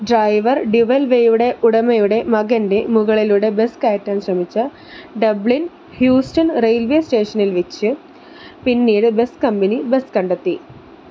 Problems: constant background noise